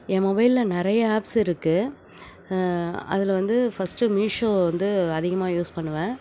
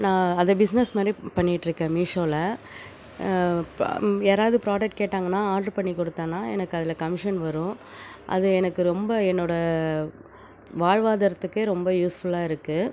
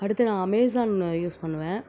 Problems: background sounds at intervals